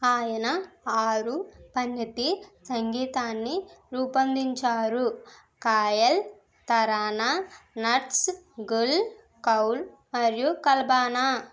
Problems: none marked